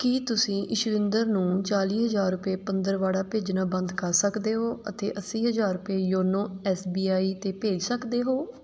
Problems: none marked